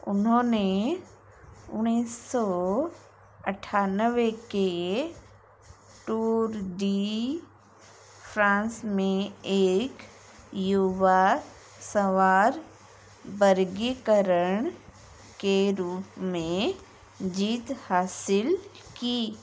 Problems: constant background noise